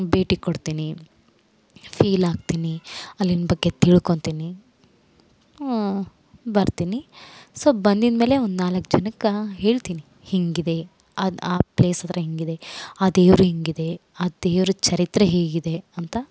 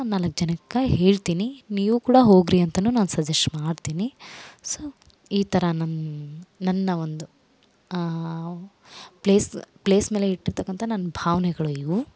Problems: none marked